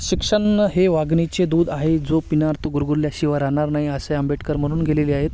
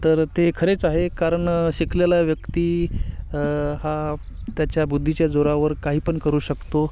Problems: constant background noise